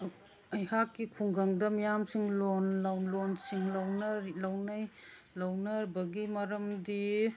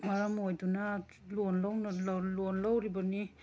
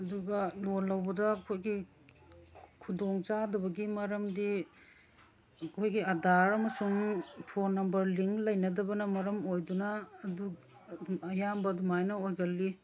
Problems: background sounds at intervals